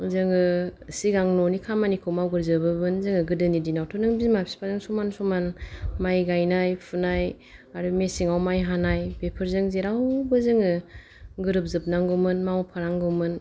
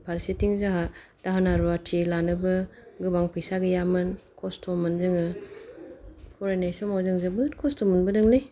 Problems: none marked